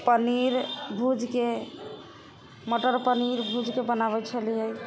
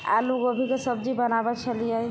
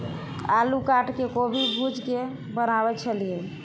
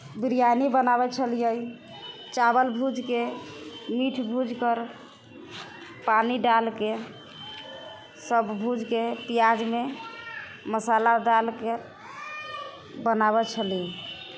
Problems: background conversations at intervals